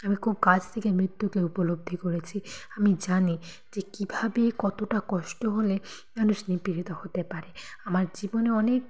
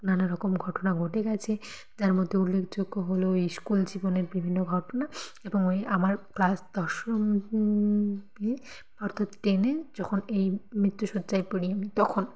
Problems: background conversations at intervals